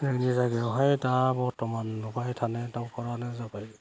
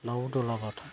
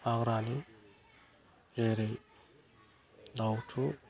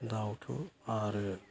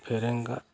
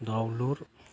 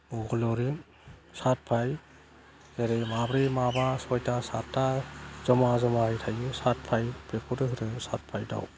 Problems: none marked